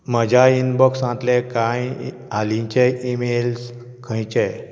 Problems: background sounds at intervals